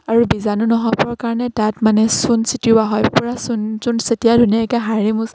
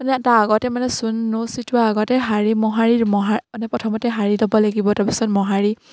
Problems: constant background noise, background conversations at intervals